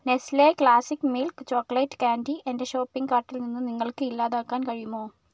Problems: none marked